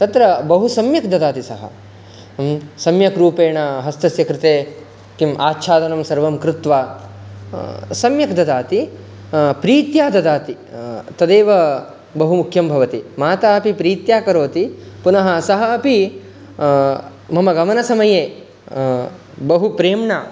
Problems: constant background noise